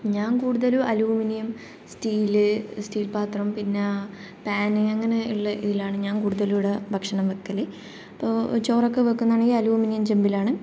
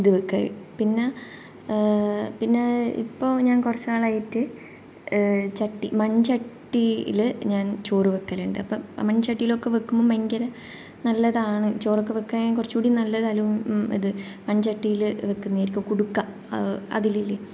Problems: none marked